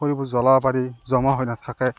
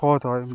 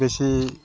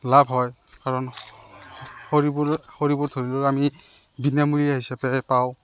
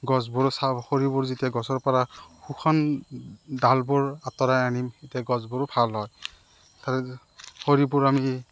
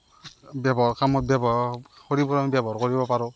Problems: constant background noise